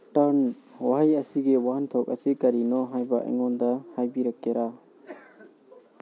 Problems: background conversations at intervals